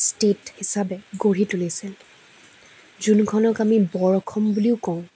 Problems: constant background noise